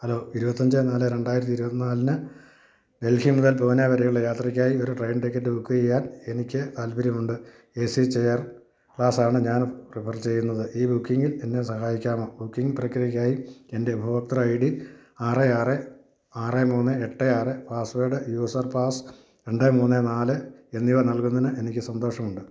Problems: constant background noise